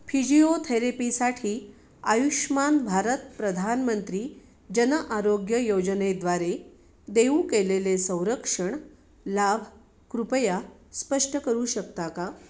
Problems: none marked